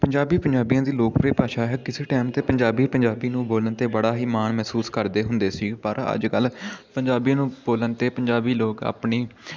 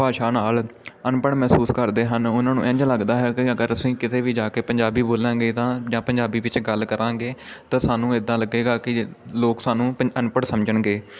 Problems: constant background noise, continuous background conversations